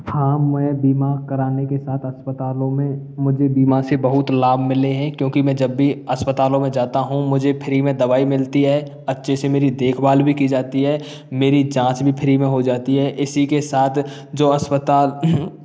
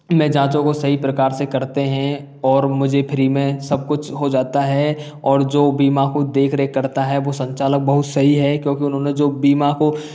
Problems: none marked